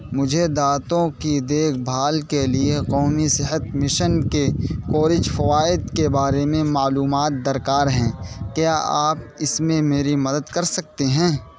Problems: constant background noise